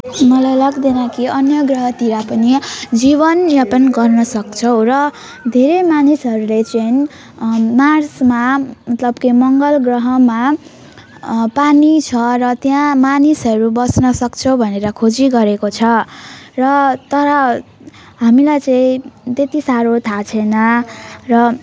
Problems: constant background noise